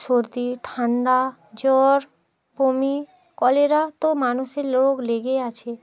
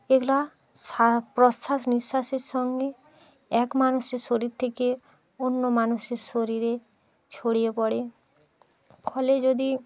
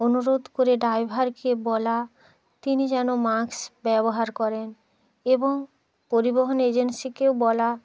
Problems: continuous background conversations